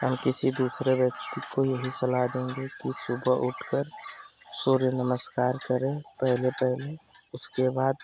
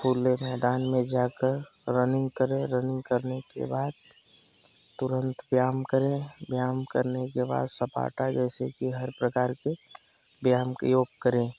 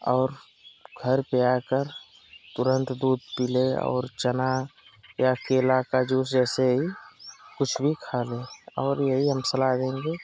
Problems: constant background noise